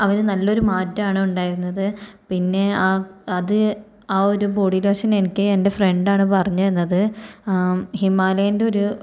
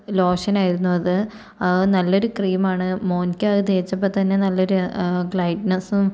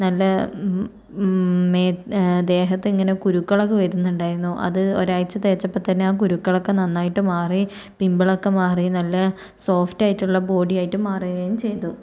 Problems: none marked